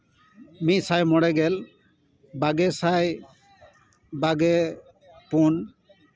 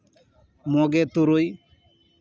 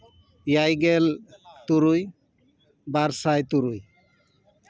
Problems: continuous background conversations